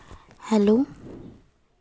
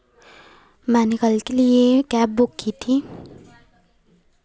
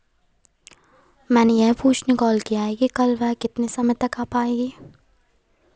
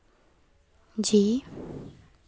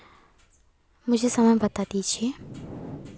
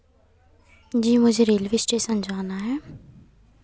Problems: constant background noise